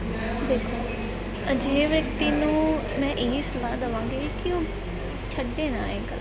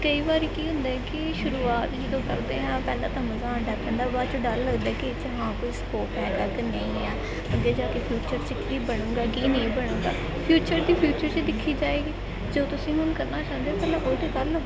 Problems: constant background noise, continuous background conversations